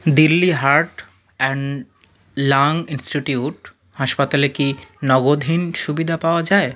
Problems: none marked